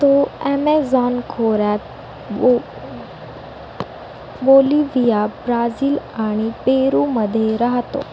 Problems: none marked